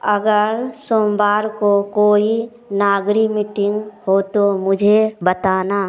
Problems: background sounds at intervals